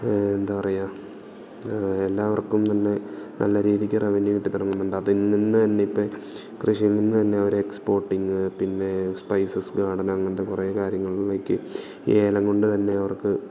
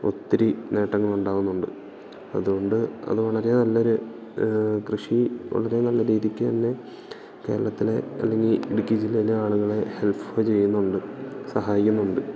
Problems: background sounds at intervals